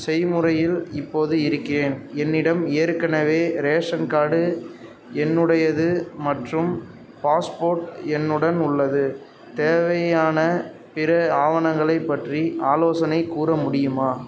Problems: none marked